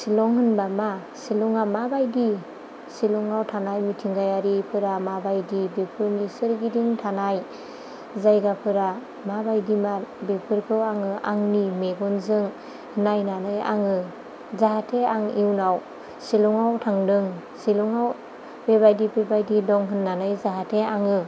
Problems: none marked